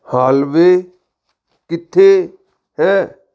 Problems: background sounds at intervals